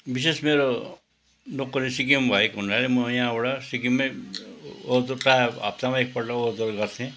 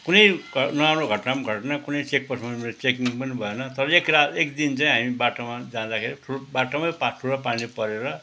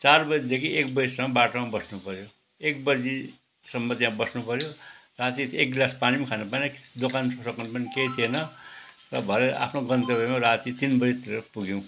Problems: background sounds at intervals